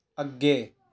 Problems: background conversations at intervals